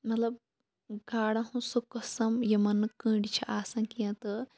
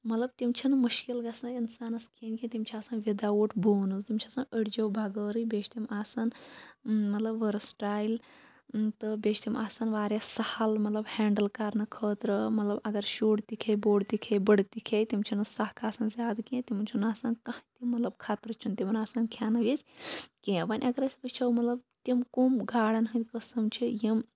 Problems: low volume